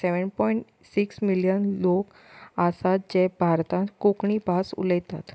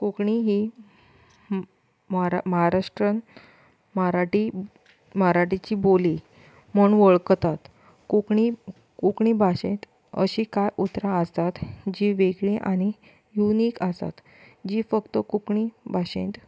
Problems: constant background noise